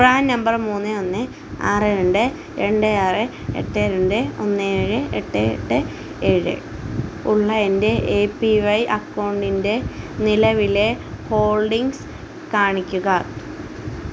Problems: constant background noise